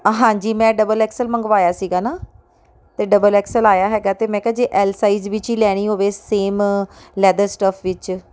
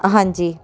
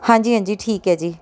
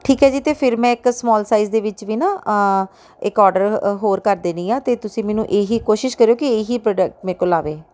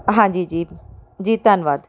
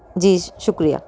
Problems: background conversations at intervals